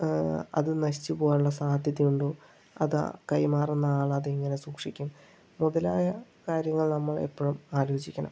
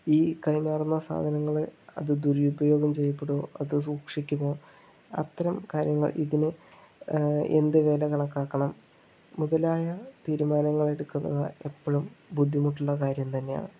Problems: low volume